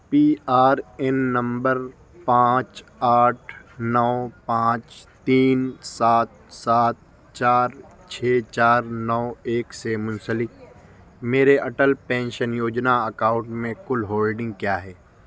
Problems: constant background noise